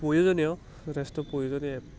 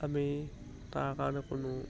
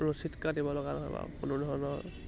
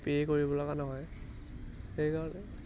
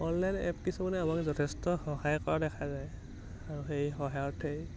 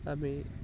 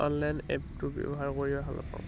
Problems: low volume